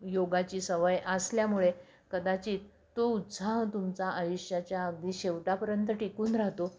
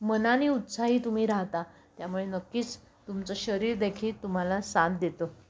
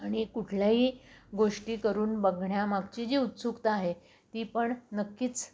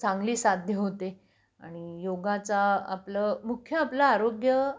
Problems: none marked